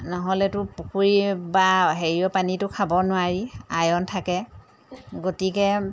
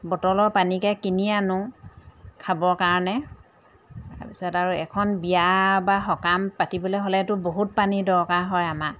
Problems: none marked